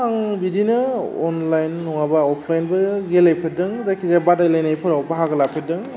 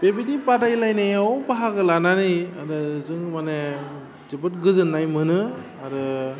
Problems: constant background noise